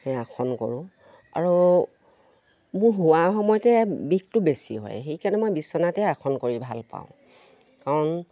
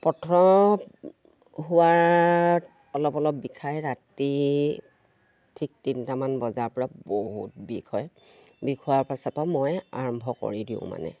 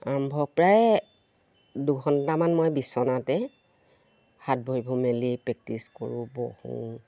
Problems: none marked